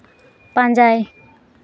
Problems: background sounds at intervals